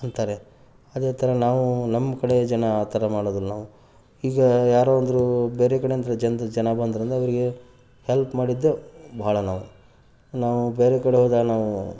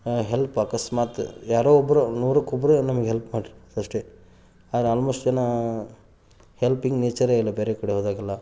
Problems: background sounds at intervals